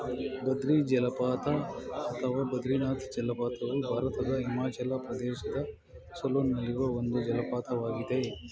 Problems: constant background noise, continuous background conversations